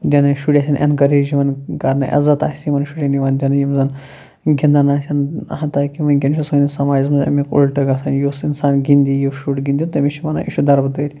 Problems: low volume